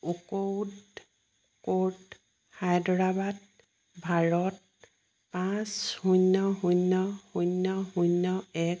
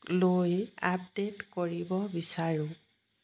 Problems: background sounds at intervals